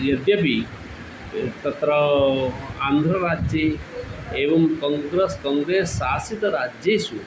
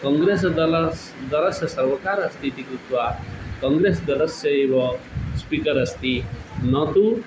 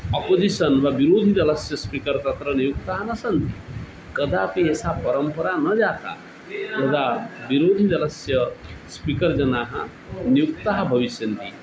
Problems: constant background noise